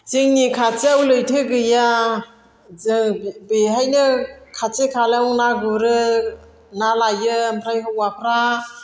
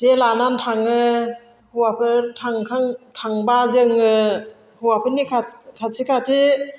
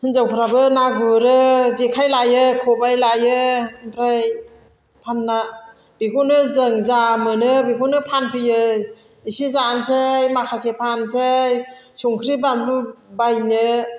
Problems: none marked